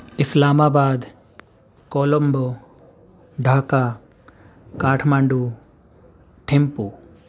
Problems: background sounds at intervals